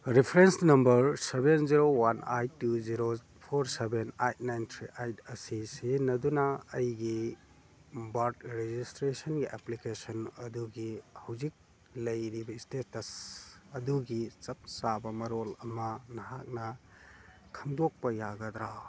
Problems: none marked